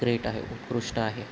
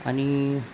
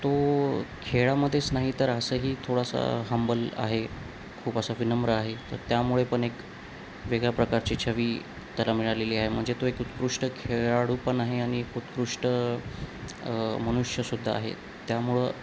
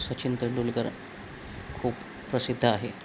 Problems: none marked